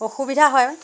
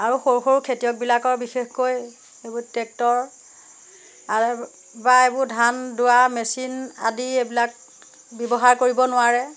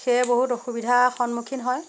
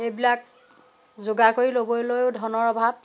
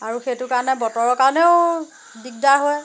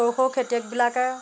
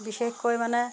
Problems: none marked